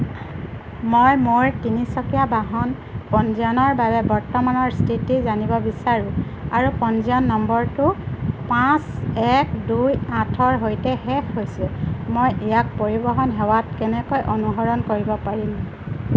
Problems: none marked